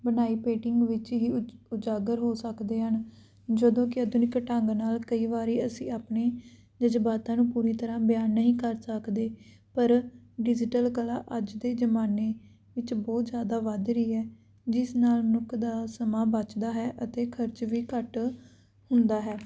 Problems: background sounds at intervals